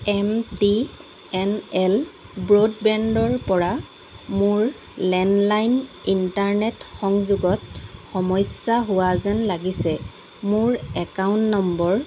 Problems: constant background noise